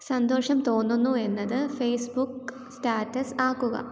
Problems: low volume